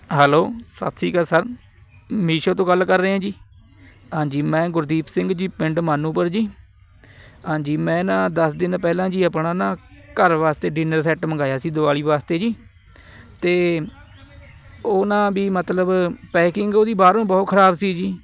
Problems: constant background noise, background conversations at intervals